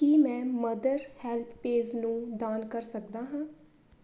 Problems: constant background noise